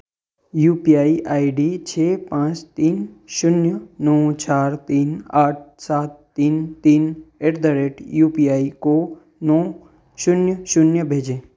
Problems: none marked